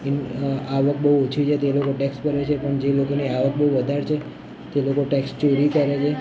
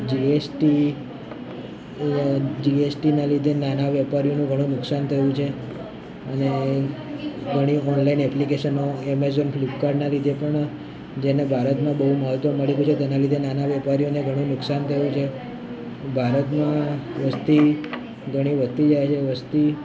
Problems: constant background noise